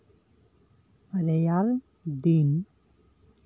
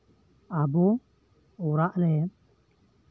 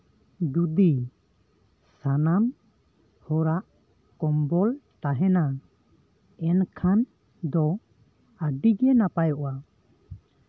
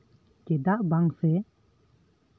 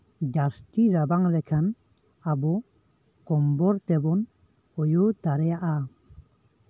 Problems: none marked